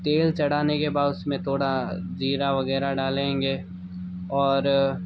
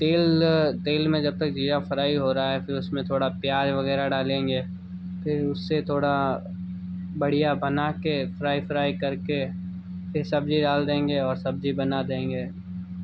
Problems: background sounds at intervals